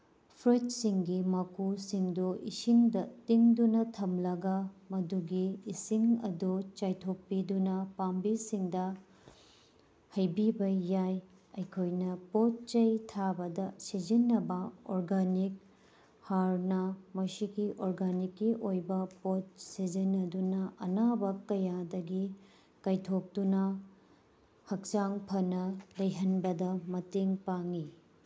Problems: background sounds at intervals